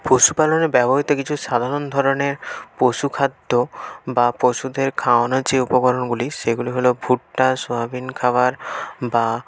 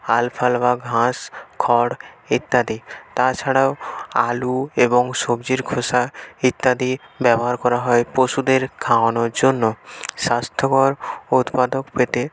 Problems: constant background noise, background conversations at intervals